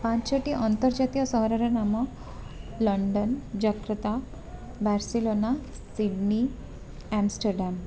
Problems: none marked